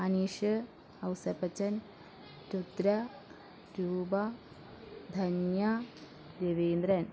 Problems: low volume